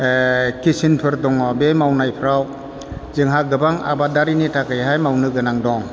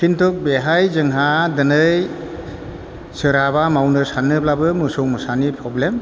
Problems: constant background noise